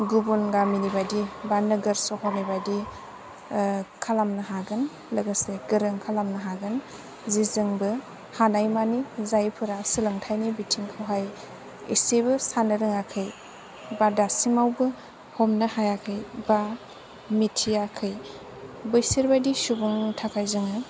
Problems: low volume